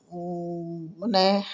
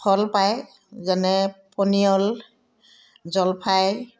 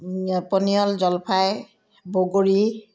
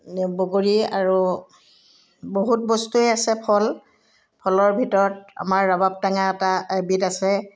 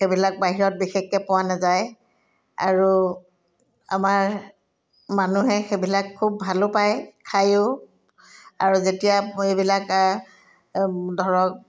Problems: none marked